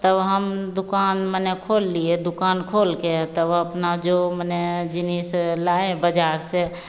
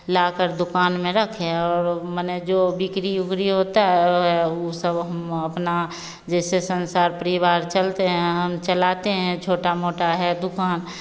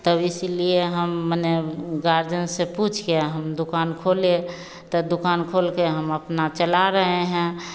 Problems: none marked